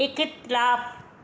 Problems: constant background noise